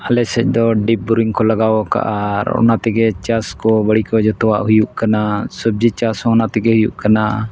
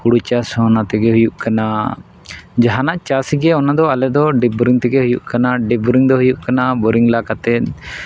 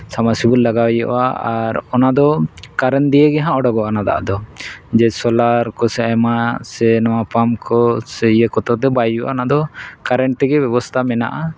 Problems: background sounds at intervals